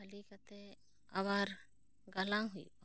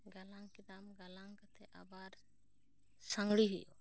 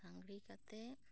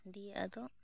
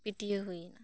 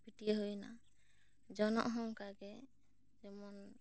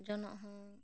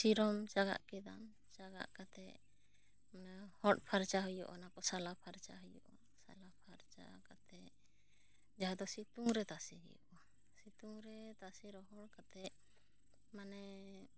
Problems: low volume